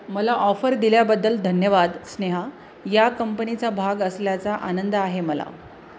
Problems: none marked